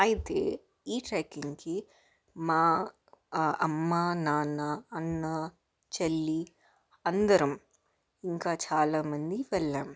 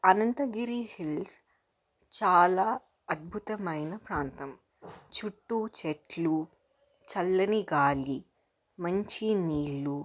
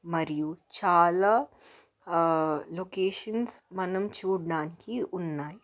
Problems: background sounds at intervals, background conversations at intervals